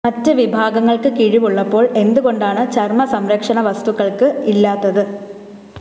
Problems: constant background noise